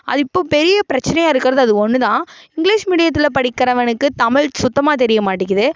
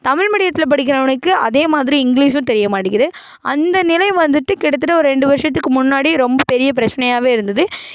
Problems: none marked